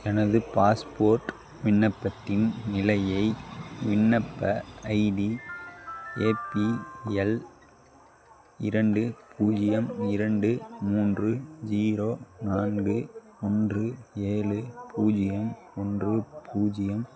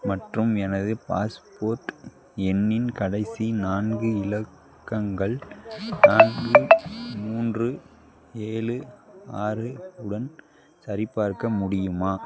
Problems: background sounds at intervals